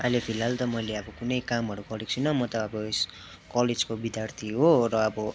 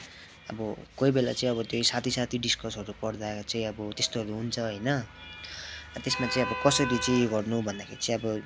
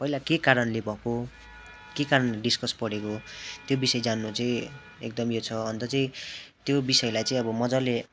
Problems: constant background noise